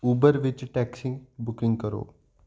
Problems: constant background noise